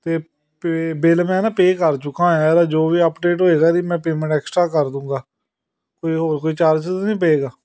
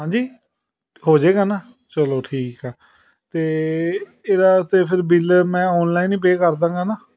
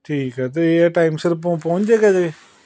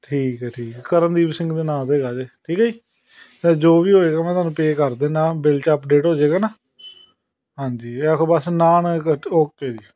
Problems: background sounds at intervals, continuous background conversations